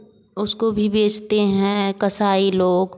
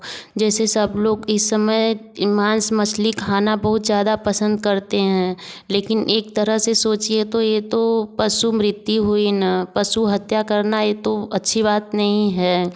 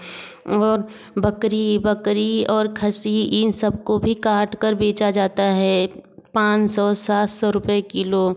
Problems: background sounds at intervals, background conversations at intervals